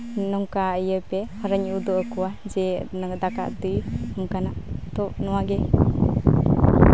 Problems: background sounds at intervals